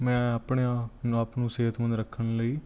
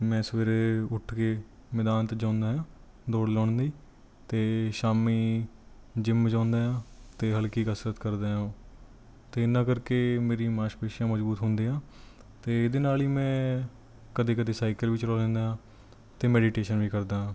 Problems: none marked